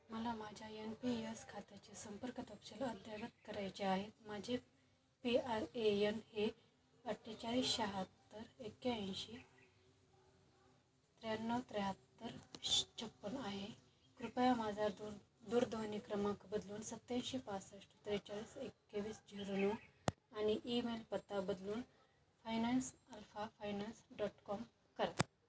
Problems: constant background noise, background conversations at intervals